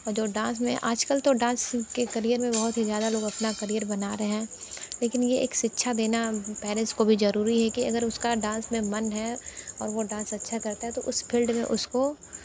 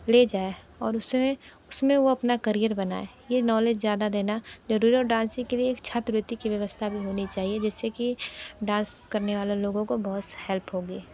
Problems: constant background noise